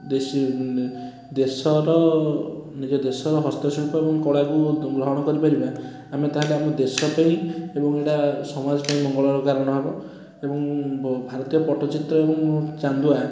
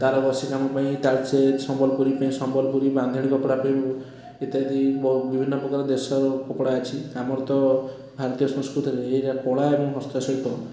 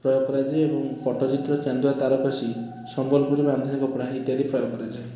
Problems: constant background noise